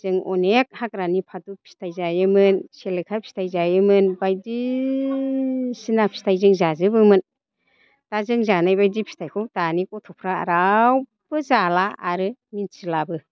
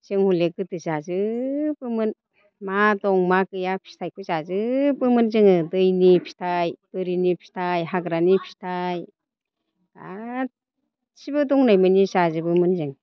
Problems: constant background noise